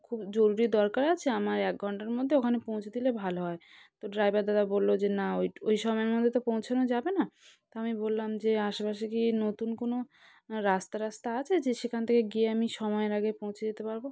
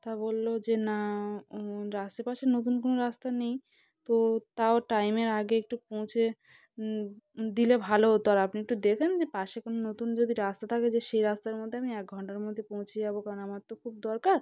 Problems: constant background noise, background conversations at intervals